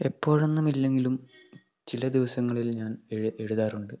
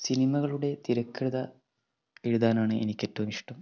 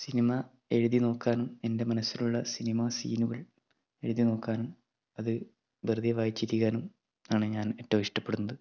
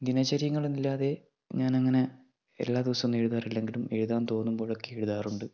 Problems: low volume